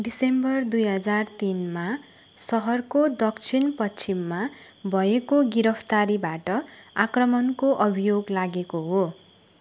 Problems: constant background noise